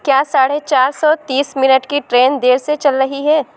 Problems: constant background noise